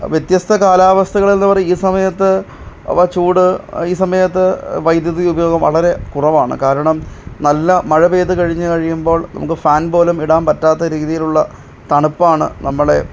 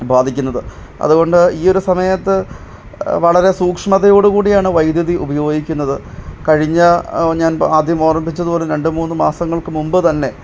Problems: none marked